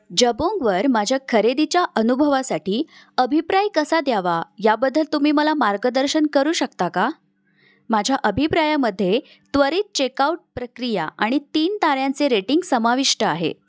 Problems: background sounds at intervals